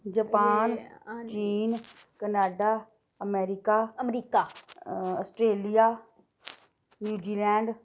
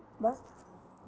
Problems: constant background noise